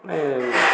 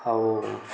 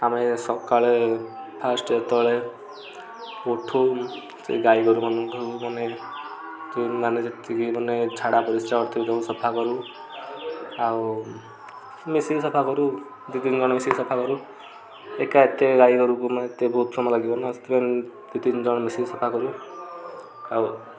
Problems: constant background noise, continuous background conversations